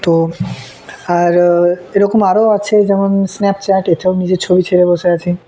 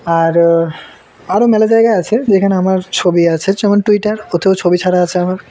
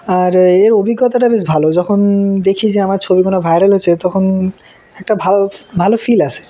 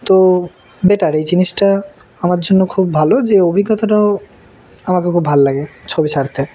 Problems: constant background noise, background conversations at intervals